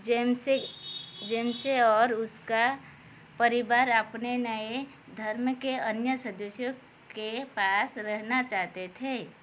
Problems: constant background noise